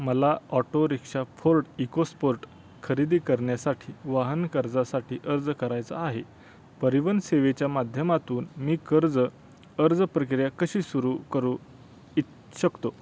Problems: constant background noise